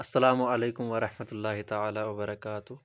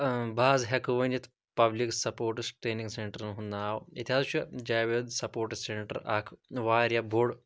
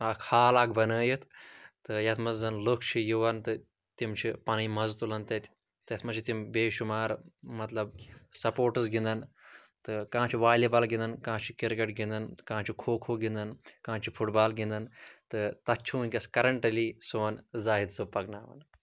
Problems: none marked